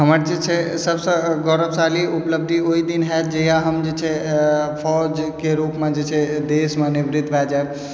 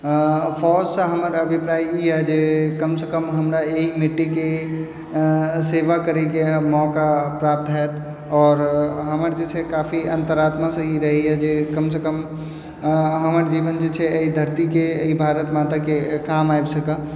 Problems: low volume